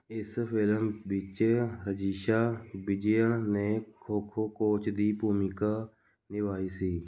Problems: none marked